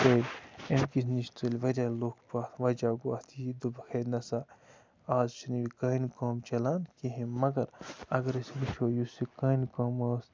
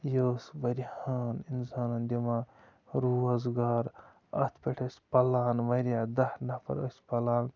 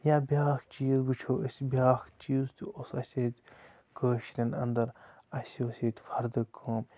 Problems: constant background noise, low volume